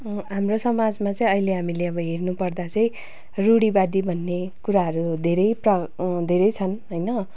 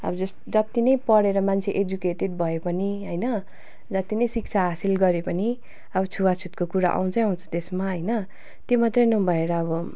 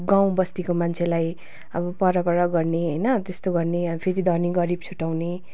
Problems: constant background noise